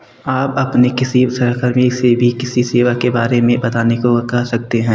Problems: constant background noise